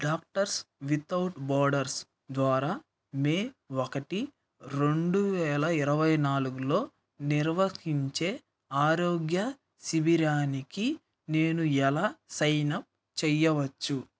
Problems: none marked